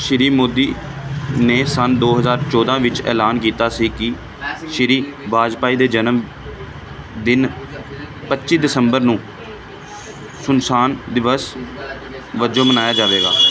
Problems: background sounds at intervals, background conversations at intervals